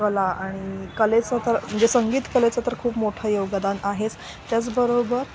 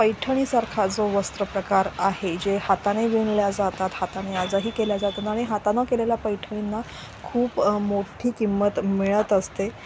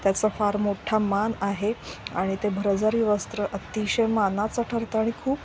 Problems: constant background noise